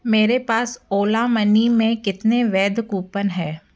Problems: background sounds at intervals